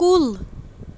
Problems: constant background noise